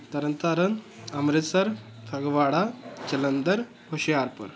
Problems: continuous background conversations